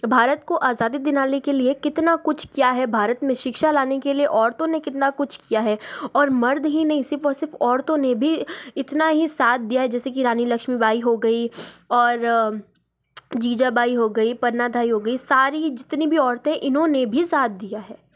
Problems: background sounds at intervals